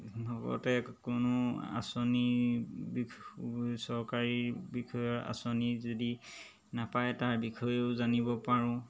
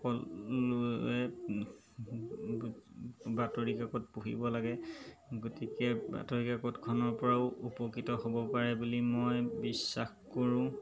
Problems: background sounds at intervals